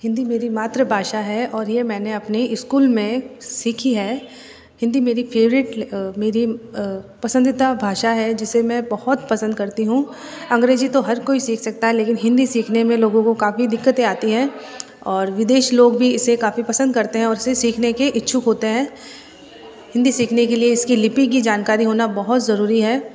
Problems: background sounds at intervals, background conversations at intervals